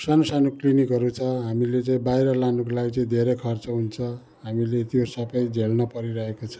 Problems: continuous background conversations